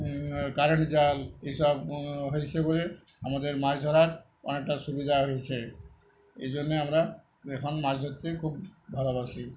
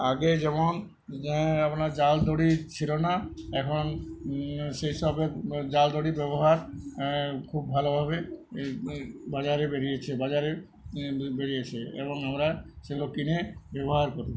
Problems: none marked